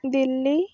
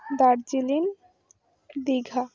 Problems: none marked